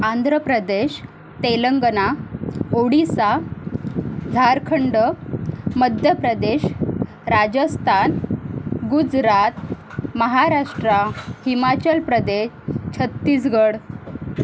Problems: constant background noise